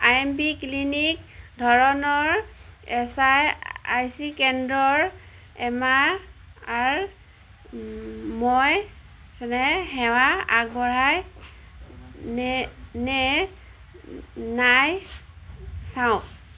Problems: none marked